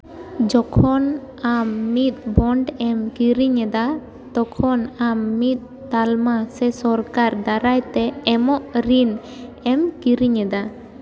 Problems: none marked